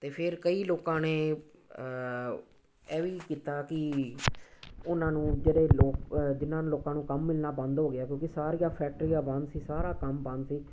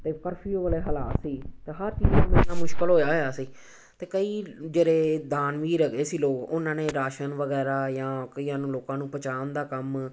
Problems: background sounds at intervals